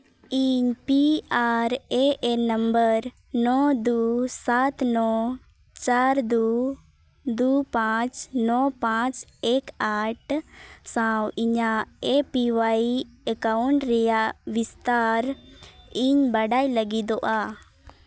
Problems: none marked